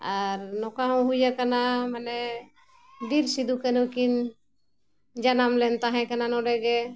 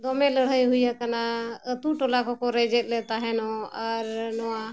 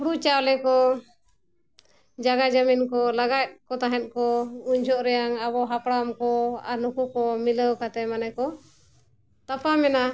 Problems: none marked